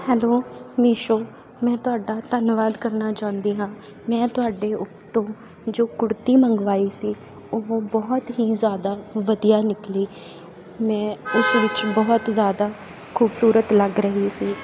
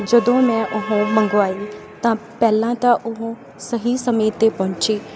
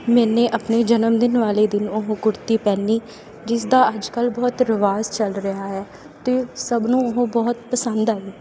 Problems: constant background noise